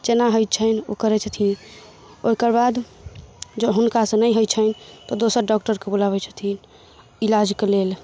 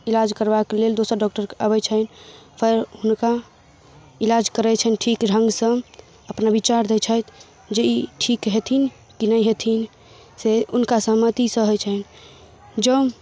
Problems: none marked